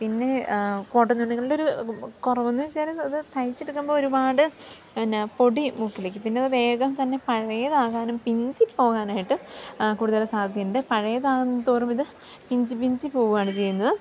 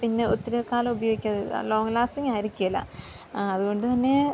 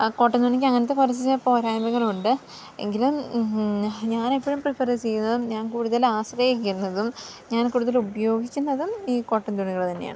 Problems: none marked